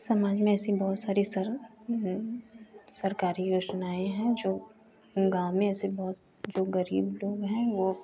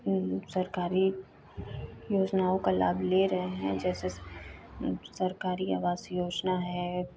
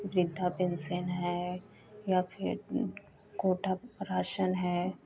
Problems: constant background noise